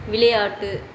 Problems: constant background noise